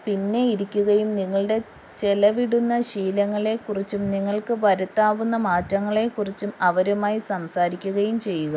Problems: constant background noise